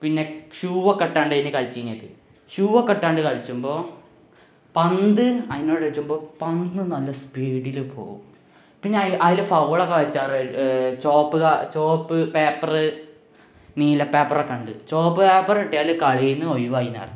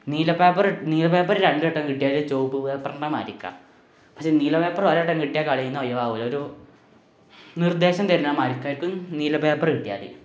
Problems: background sounds at intervals